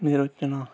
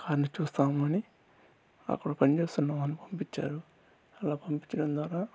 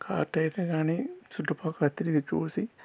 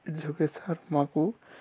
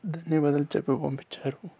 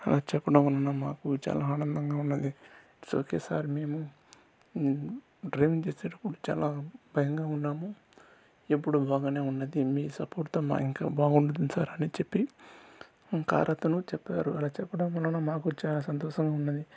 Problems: constant background noise, low volume